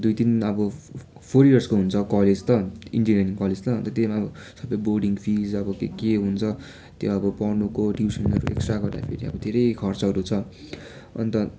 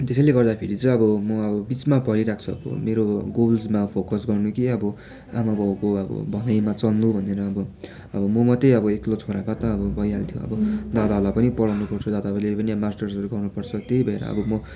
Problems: constant background noise